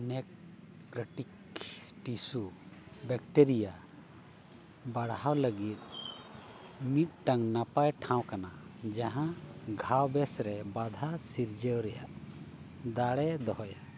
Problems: background sounds at intervals, low volume